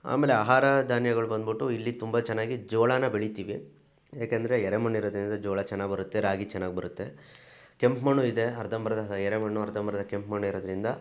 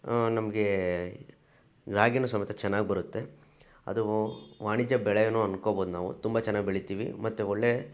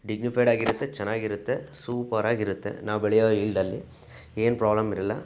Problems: background sounds at intervals